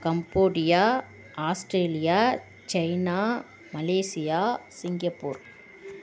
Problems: constant background noise